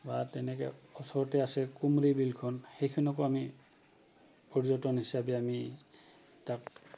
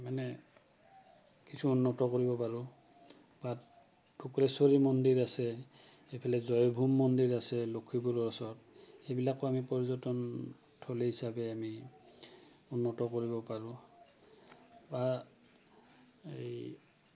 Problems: constant background noise